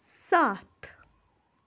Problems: constant background noise